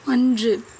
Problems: none marked